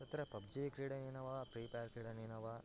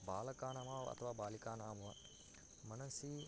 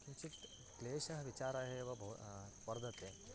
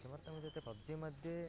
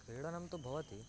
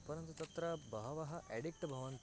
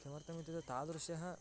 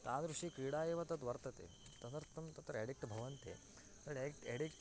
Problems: constant background noise, low volume